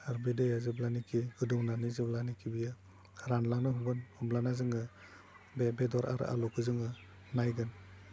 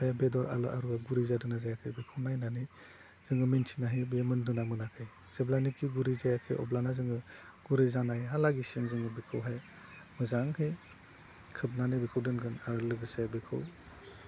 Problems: low volume